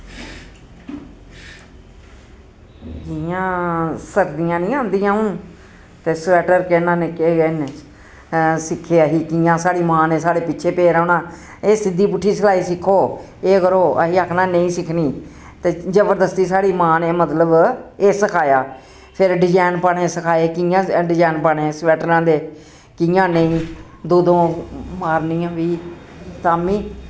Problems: constant background noise